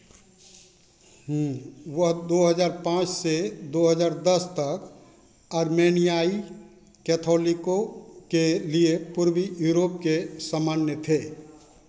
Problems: constant background noise